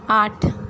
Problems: none marked